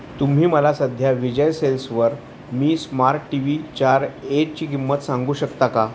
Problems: constant background noise